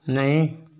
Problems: none marked